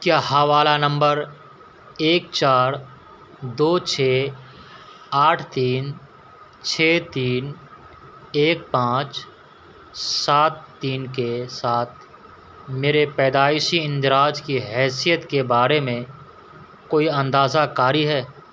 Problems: constant background noise